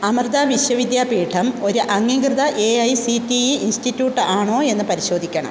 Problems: constant background noise